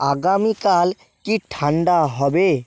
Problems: background sounds at intervals